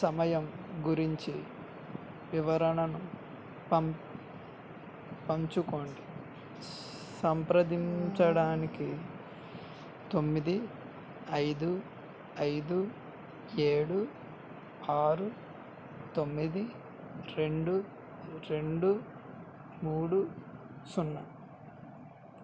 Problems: constant background noise, low volume